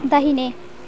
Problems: background sounds at intervals